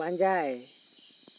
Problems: constant background noise